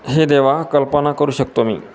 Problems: constant background noise